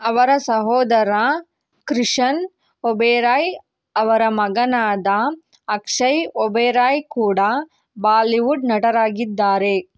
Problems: none marked